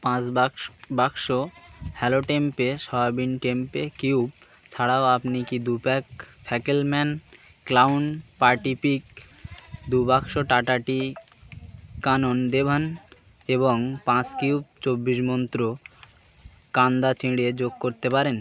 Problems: none marked